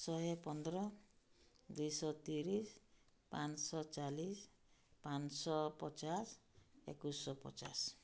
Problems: none marked